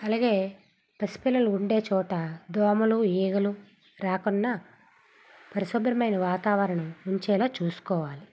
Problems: background sounds at intervals